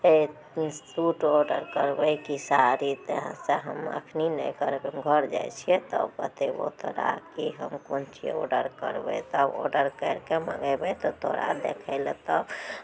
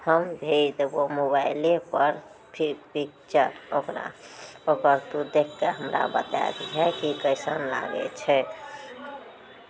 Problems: background sounds at intervals